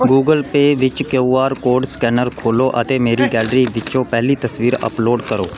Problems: background sounds at intervals